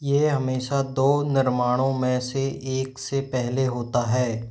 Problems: none marked